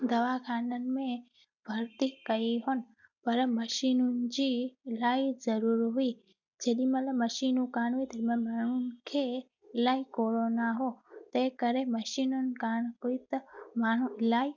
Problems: background sounds at intervals